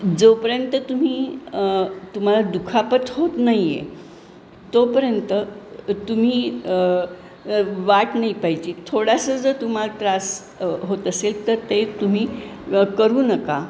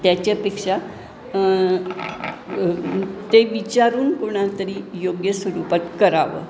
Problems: background sounds at intervals, background conversations at intervals